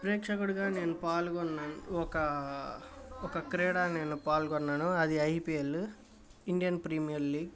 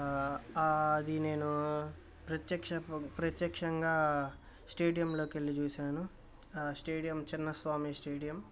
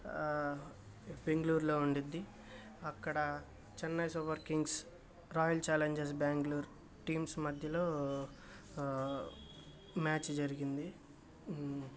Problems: constant background noise